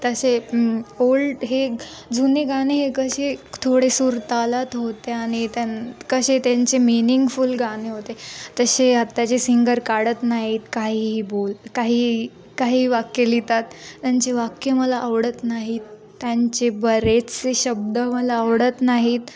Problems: none marked